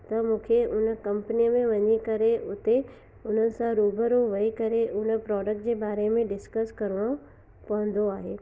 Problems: constant background noise, echo, low volume